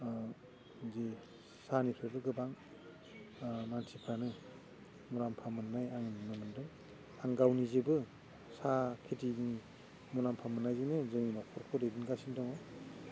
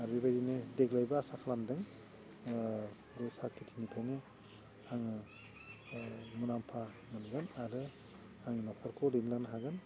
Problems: constant background noise